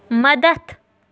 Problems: none marked